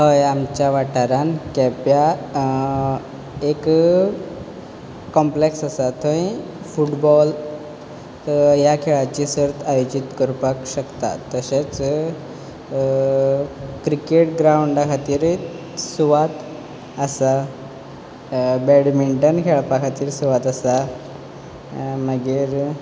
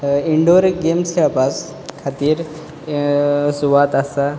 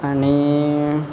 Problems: background sounds at intervals